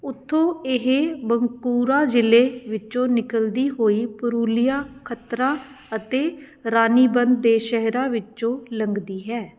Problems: none marked